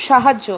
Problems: constant background noise